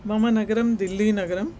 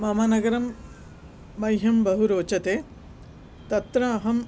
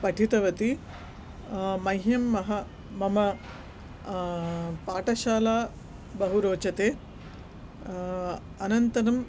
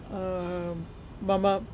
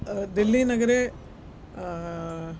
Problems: none marked